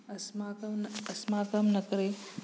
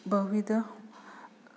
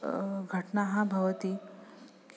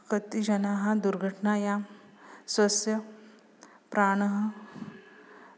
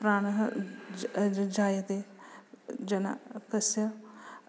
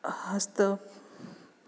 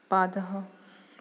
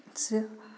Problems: background sounds at intervals